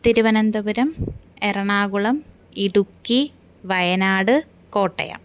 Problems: none marked